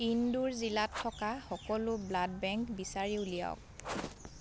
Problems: continuous background conversations